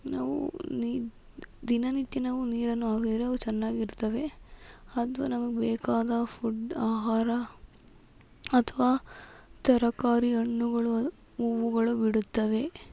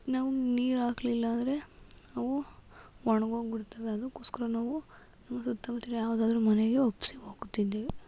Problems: constant background noise